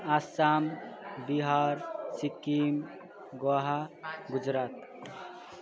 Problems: continuous background conversations